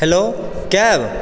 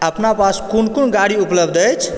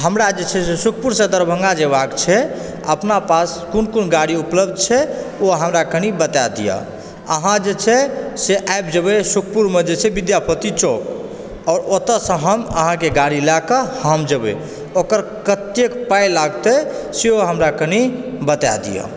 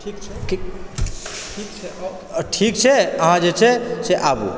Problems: background sounds at intervals, background conversations at intervals